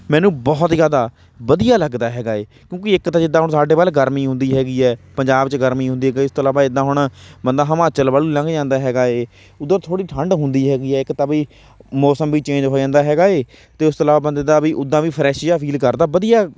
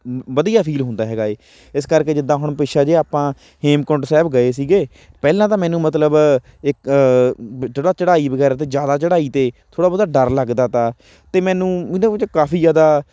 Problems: none marked